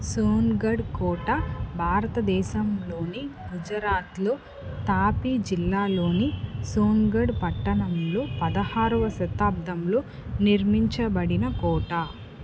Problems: background sounds at intervals